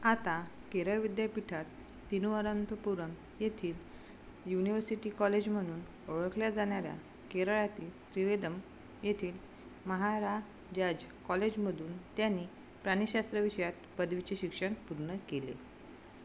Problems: background sounds at intervals